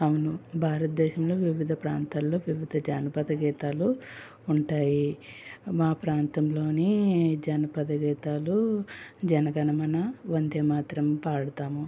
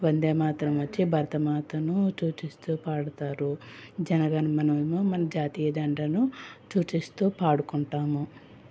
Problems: none marked